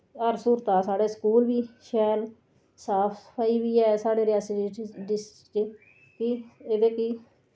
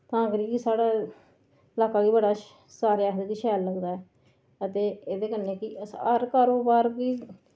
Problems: none marked